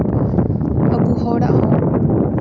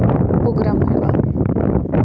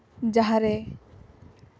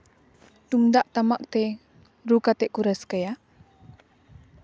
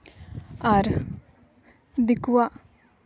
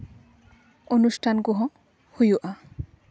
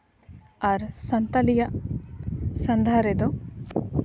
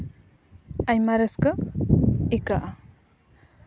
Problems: background sounds at intervals